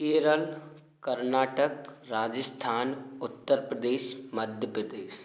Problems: constant background noise